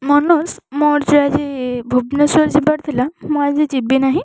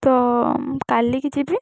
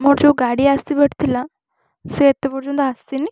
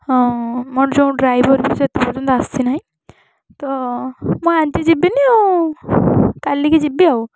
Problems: constant background noise